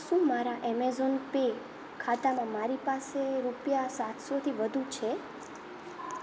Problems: none marked